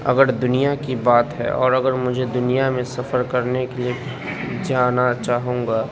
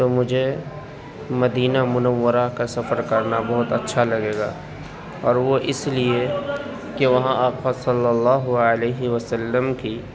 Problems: background sounds at intervals